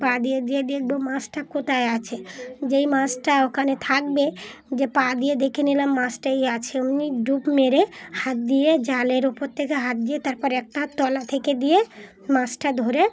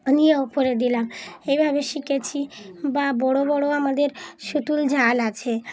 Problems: none marked